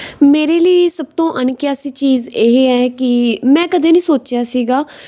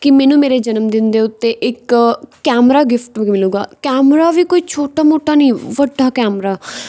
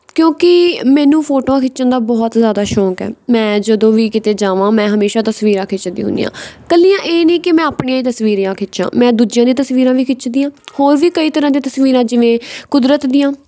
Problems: none marked